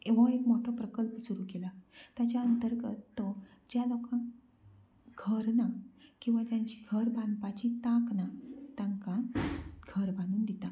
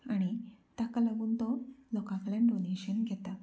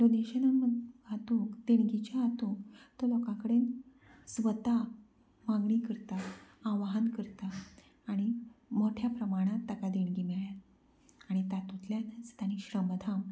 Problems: low volume